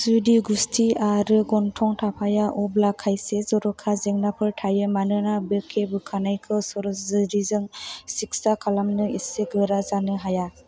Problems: none marked